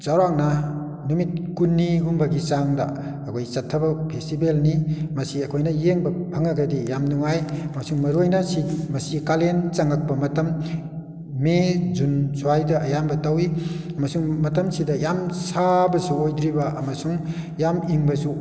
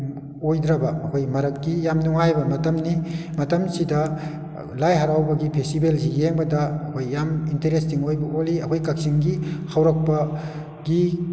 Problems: background sounds at intervals